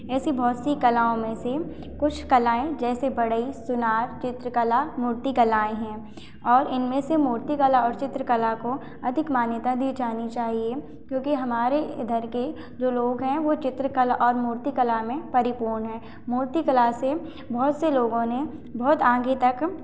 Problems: none marked